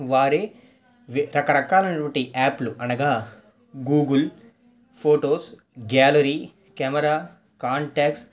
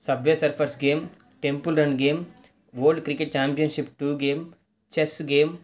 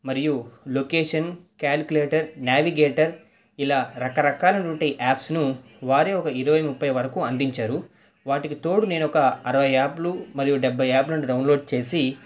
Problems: background conversations at intervals